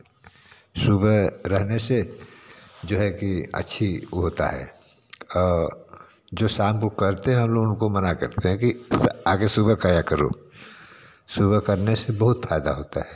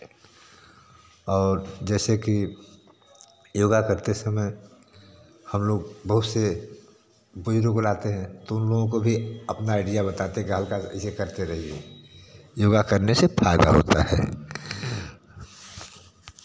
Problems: constant background noise